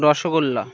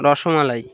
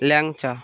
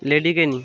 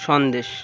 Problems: none marked